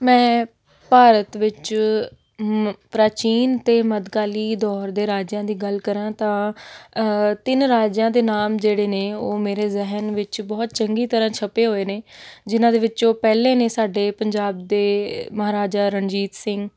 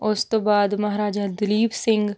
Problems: none marked